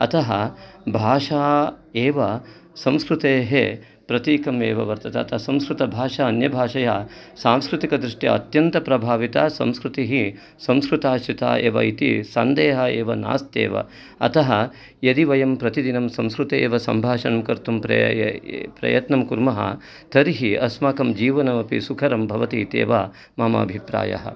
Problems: background sounds at intervals